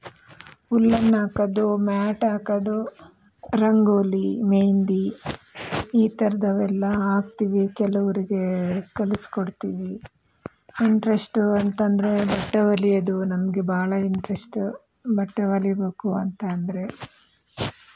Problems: background sounds at intervals